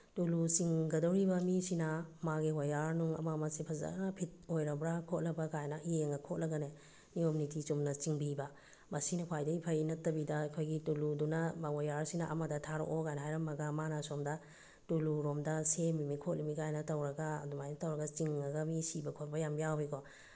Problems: background sounds at intervals